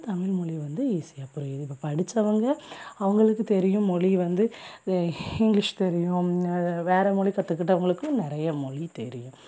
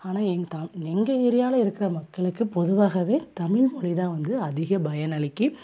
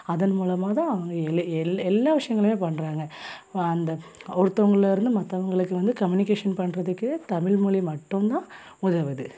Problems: background sounds at intervals